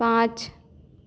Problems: none marked